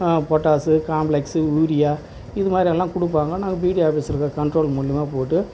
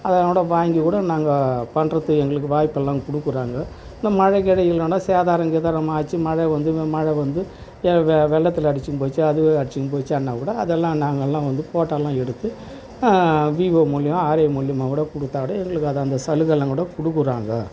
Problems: constant background noise